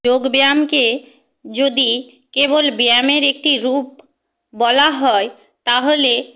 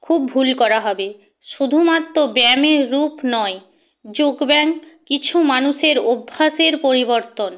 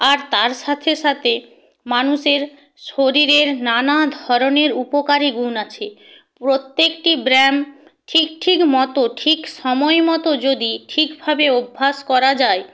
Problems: background sounds at intervals